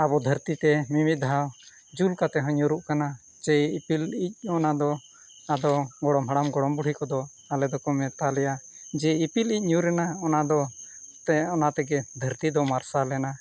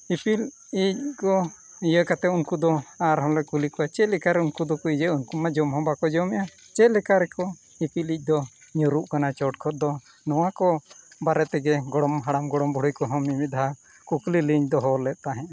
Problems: background sounds at intervals